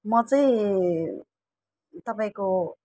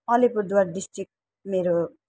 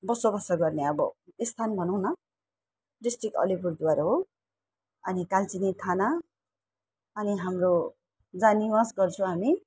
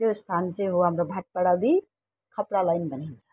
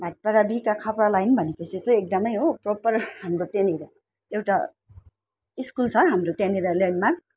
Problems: none marked